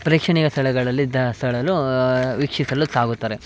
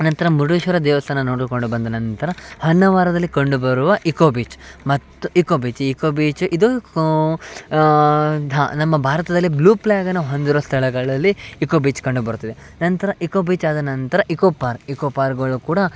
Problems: background sounds at intervals